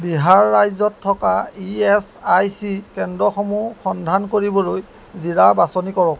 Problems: none marked